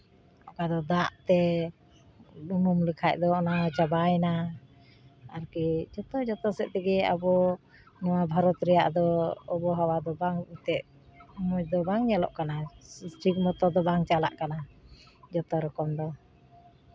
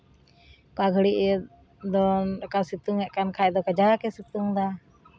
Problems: none marked